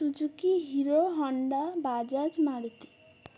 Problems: none marked